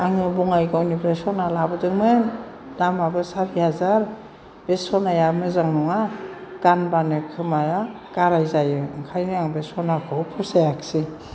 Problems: none marked